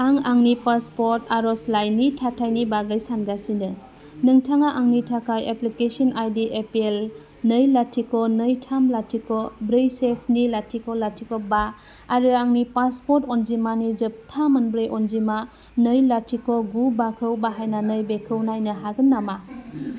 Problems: none marked